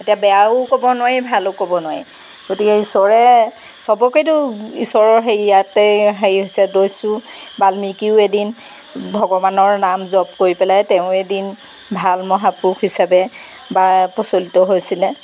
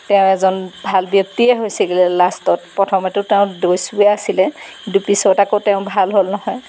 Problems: background sounds at intervals